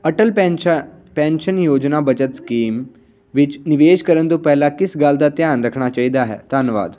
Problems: none marked